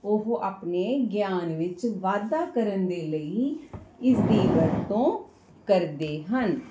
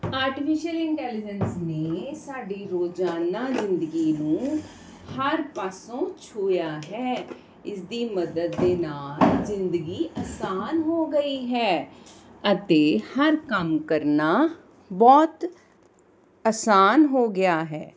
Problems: constant background noise